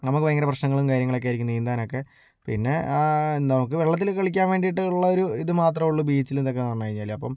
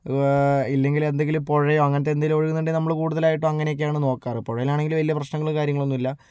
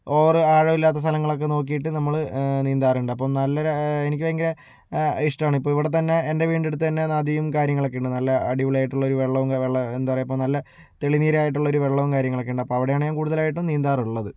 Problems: low volume